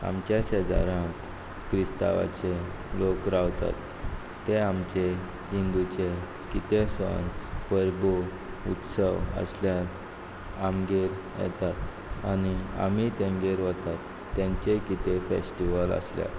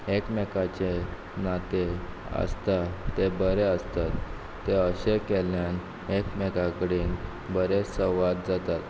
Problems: background sounds at intervals